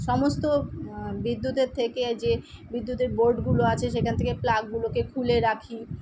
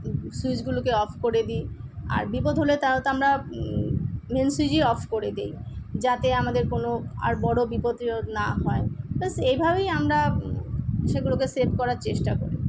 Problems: constant background noise